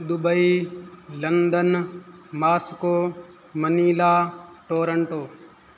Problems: none marked